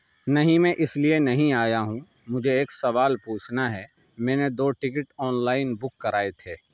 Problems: none marked